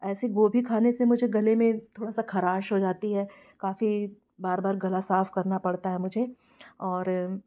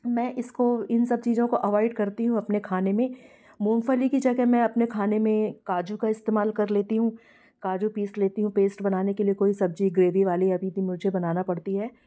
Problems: background sounds at intervals, background conversations at intervals